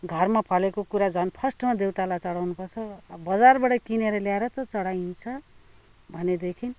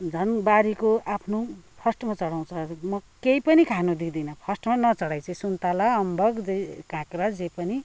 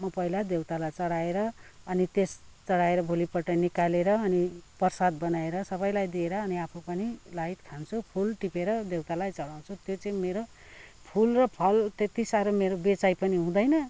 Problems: background conversations at intervals